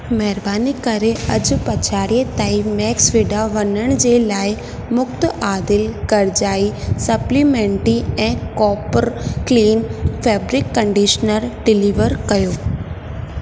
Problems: constant background noise, echo